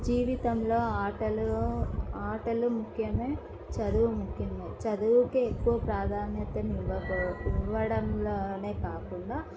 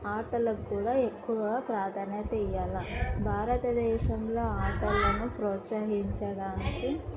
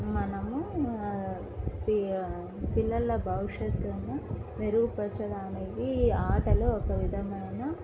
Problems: background conversations at intervals, low volume